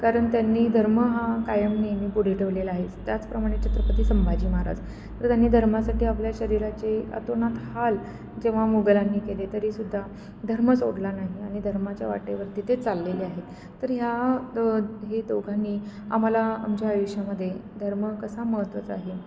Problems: none marked